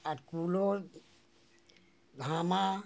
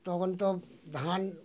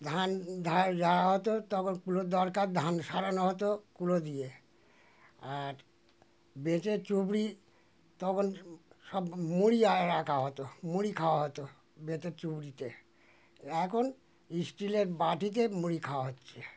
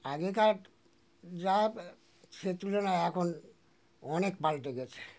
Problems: constant background noise